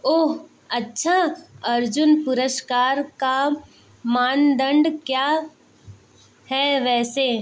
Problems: background sounds at intervals